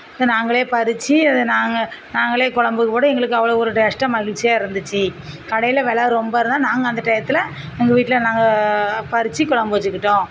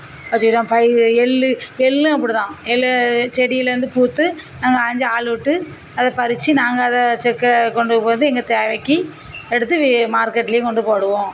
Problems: constant background noise, low volume